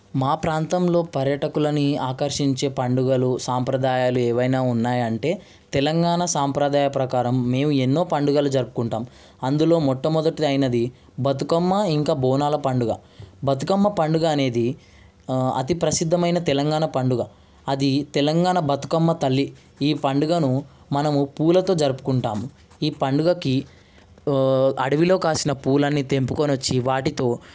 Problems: none marked